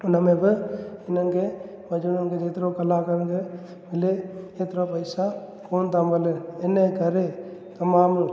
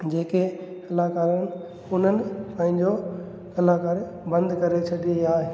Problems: constant background noise, echo